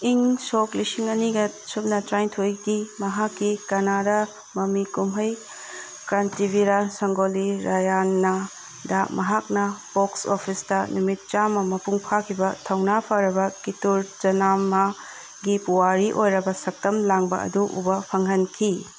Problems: background sounds at intervals